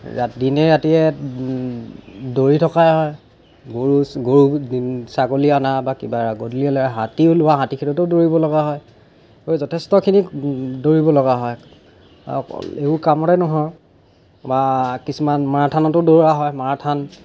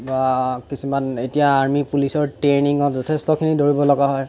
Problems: background sounds at intervals